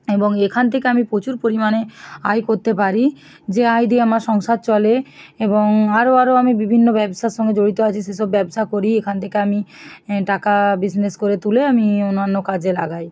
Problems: none marked